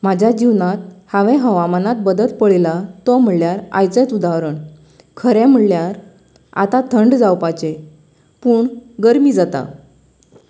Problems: none marked